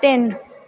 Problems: none marked